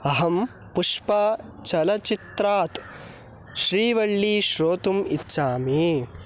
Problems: background sounds at intervals